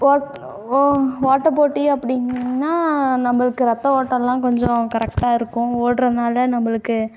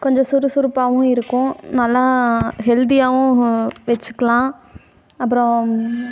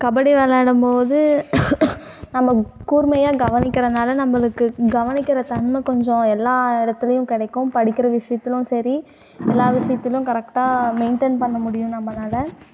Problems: constant background noise, background conversations at intervals